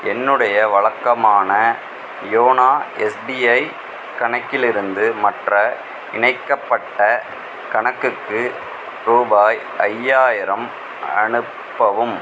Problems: constant background noise